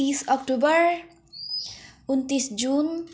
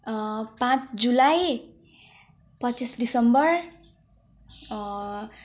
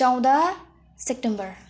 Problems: background sounds at intervals, background conversations at intervals